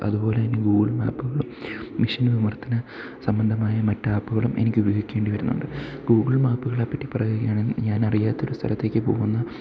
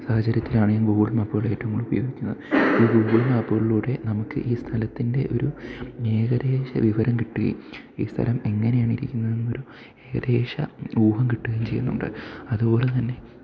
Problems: background sounds at intervals, low volume